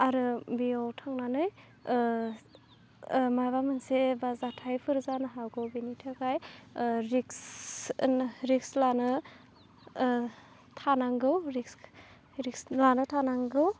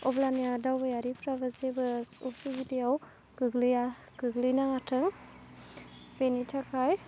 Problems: constant background noise